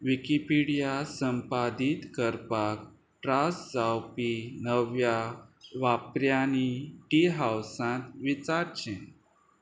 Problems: none marked